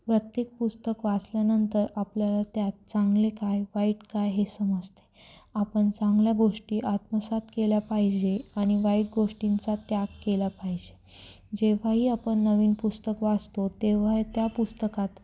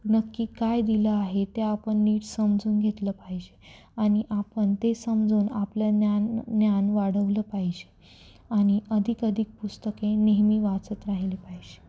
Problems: none marked